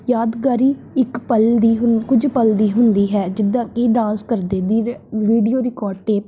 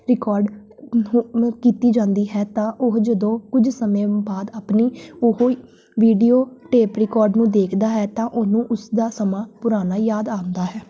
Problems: background sounds at intervals